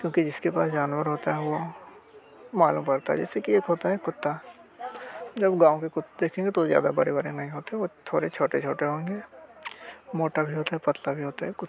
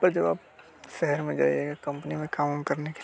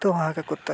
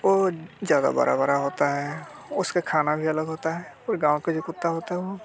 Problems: constant background noise